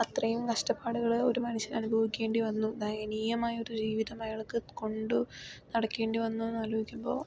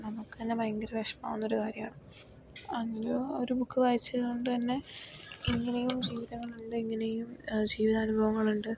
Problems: low volume